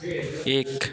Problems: continuous background conversations